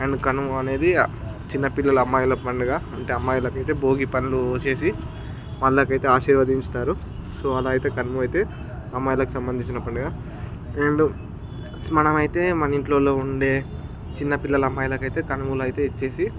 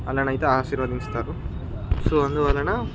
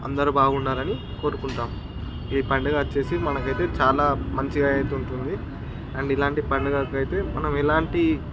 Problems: none marked